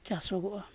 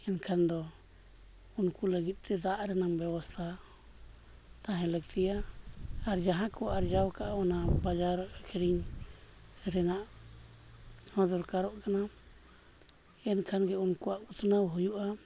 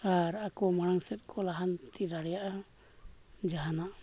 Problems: none marked